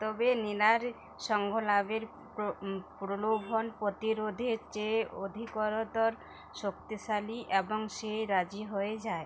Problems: background sounds at intervals, background conversations at intervals